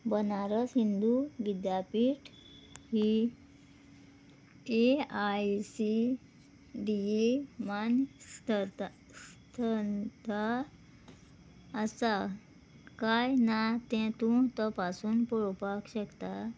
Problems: background sounds at intervals